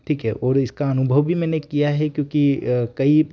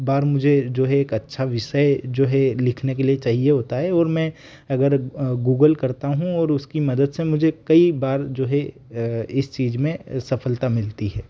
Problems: none marked